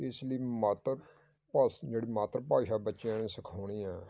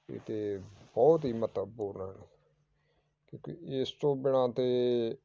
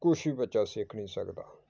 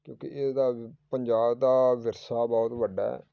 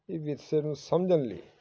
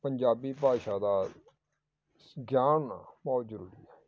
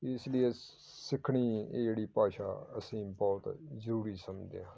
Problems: background sounds at intervals, background conversations at intervals